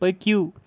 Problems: constant background noise